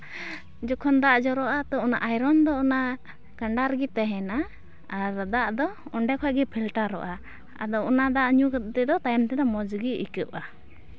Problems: none marked